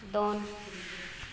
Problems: echo